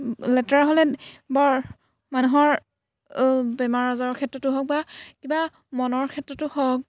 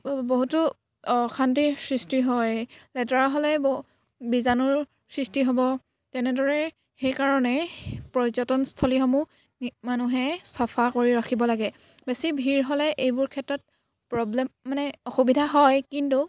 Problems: background sounds at intervals